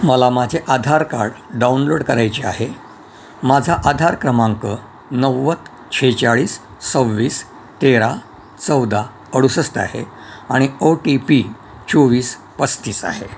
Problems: constant background noise